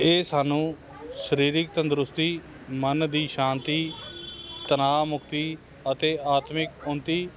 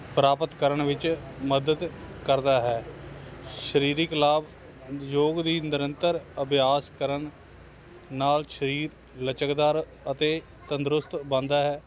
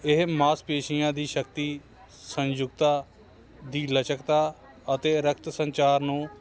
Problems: constant background noise